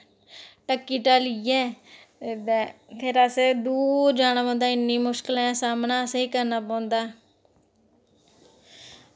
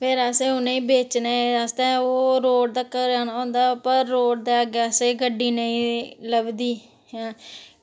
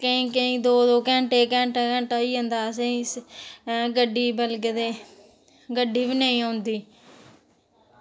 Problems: none marked